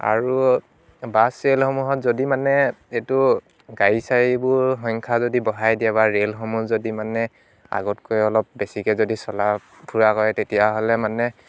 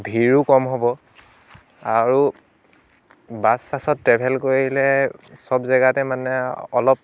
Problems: background sounds at intervals